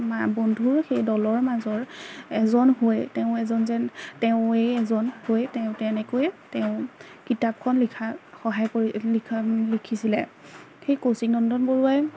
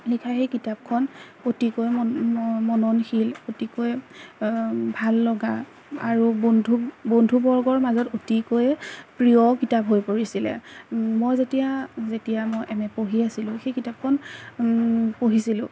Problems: background sounds at intervals, background conversations at intervals